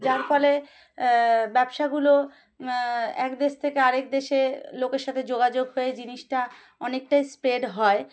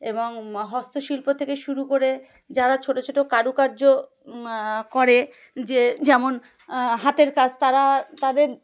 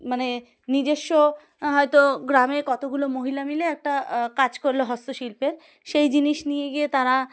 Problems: background sounds at intervals